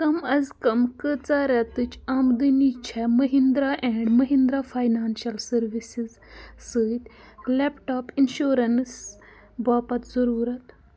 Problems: none marked